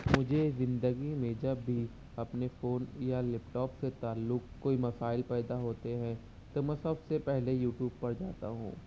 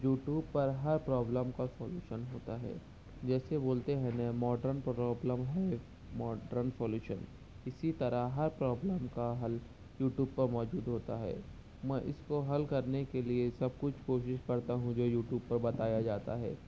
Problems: none marked